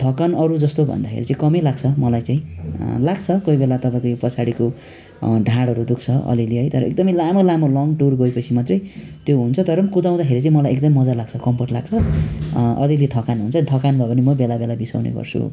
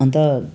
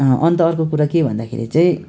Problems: none marked